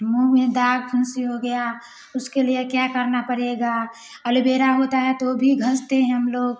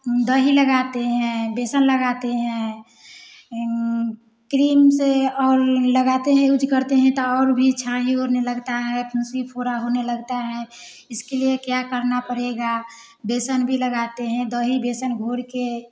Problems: background sounds at intervals, background conversations at intervals